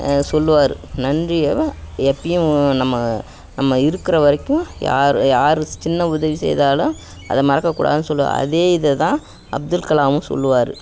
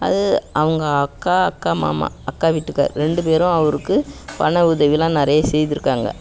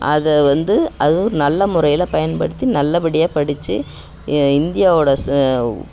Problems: background sounds at intervals